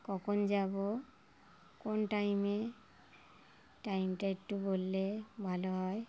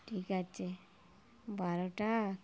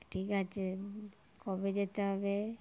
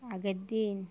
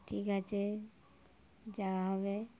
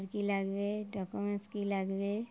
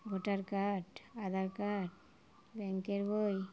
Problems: background sounds at intervals